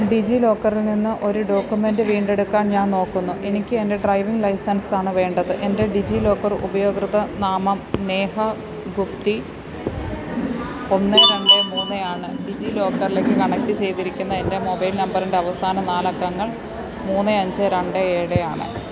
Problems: constant background noise